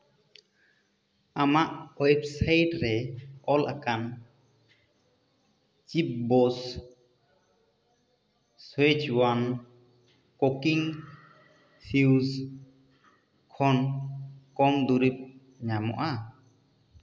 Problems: echo